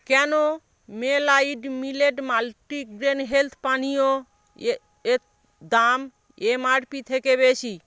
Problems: background sounds at intervals